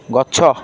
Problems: constant background noise